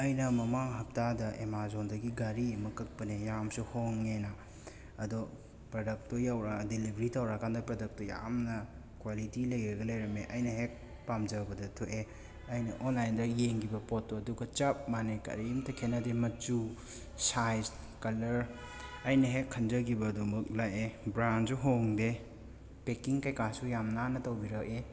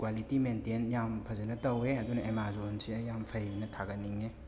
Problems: constant background noise, background conversations at intervals